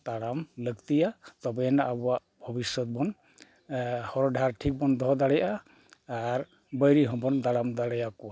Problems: none marked